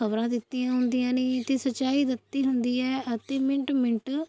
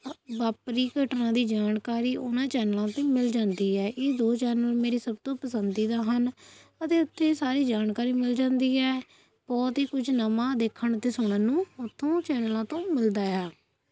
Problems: constant background noise